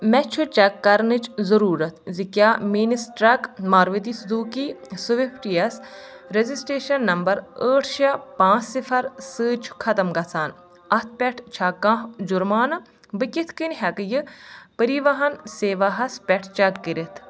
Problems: constant background noise